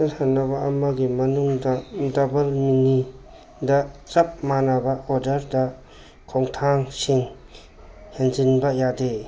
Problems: background sounds at intervals